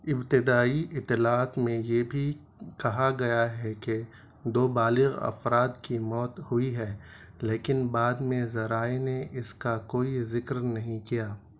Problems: none marked